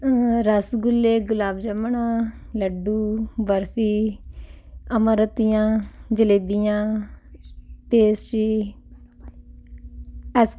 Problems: none marked